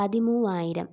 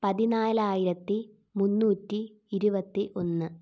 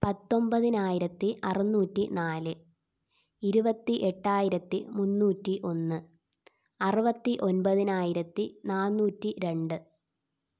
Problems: none marked